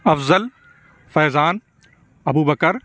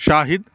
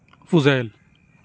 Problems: none marked